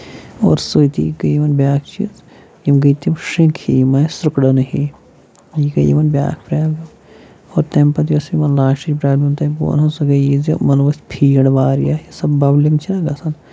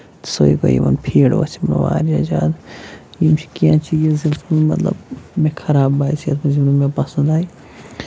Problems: none marked